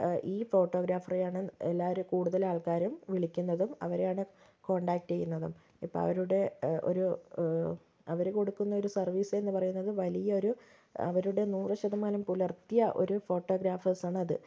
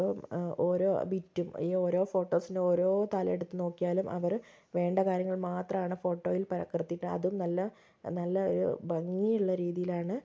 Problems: low volume